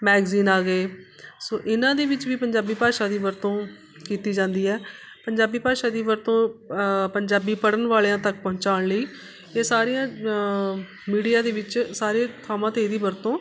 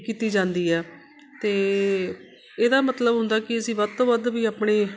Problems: none marked